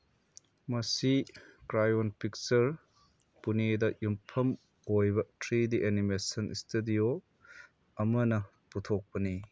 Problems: none marked